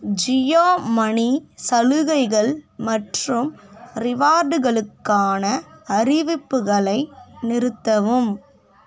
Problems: none marked